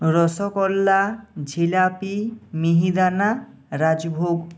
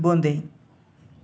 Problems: none marked